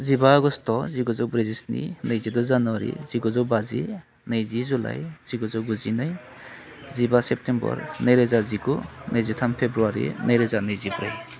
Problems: constant background noise